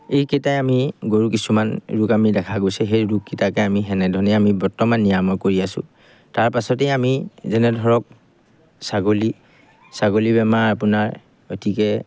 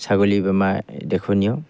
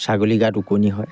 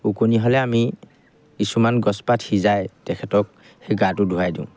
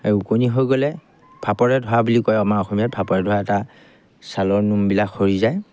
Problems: background sounds at intervals